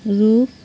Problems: constant background noise